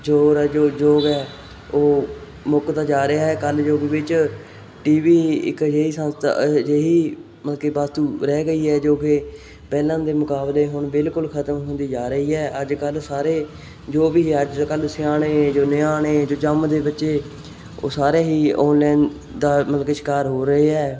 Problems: none marked